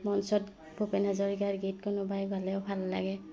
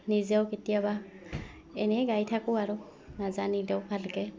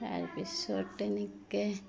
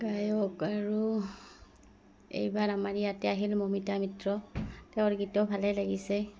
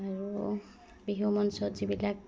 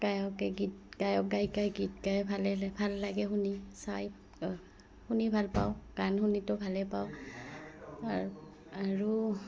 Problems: background sounds at intervals